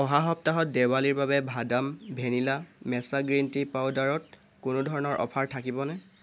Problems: constant background noise